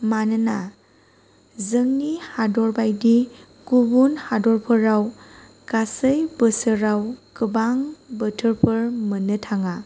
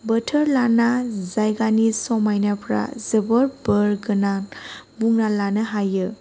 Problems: none marked